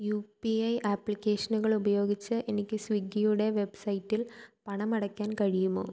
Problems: low volume